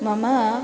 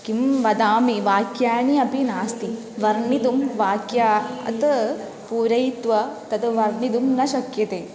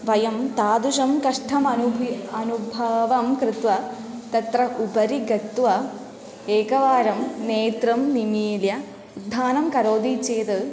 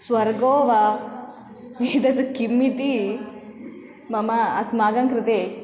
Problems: constant background noise